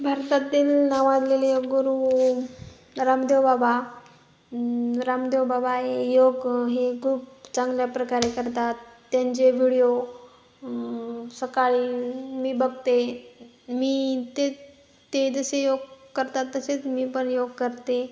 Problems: background sounds at intervals